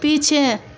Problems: constant background noise